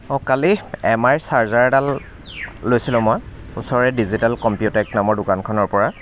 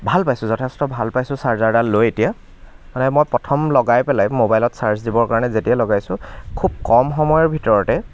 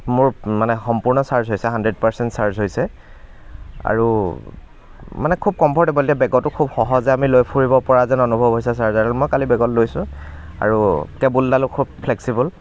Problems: none marked